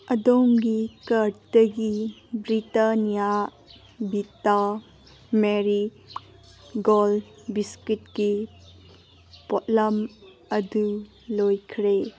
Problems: constant background noise